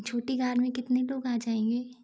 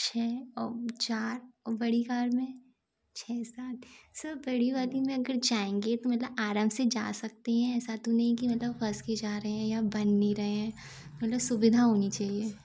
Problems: none marked